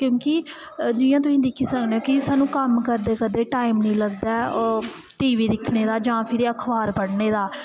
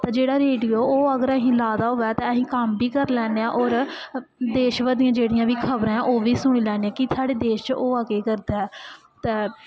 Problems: echo